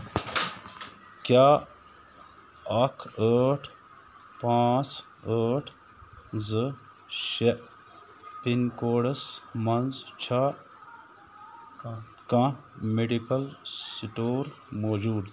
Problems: constant background noise